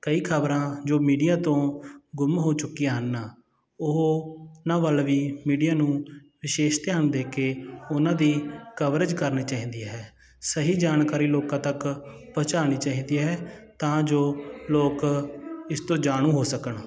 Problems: continuous background conversations